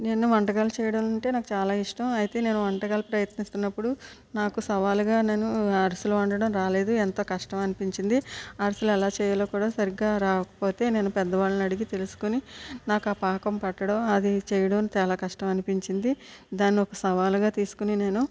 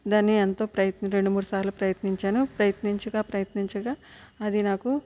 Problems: none marked